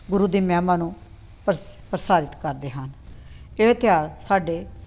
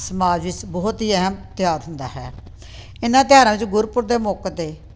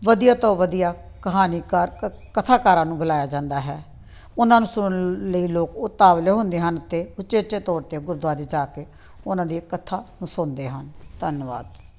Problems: background sounds at intervals